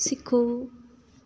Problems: background sounds at intervals